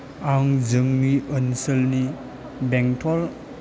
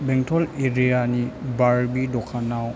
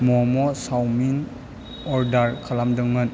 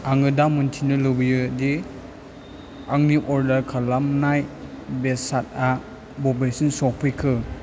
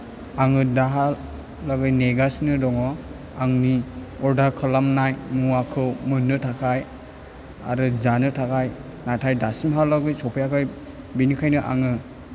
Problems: low volume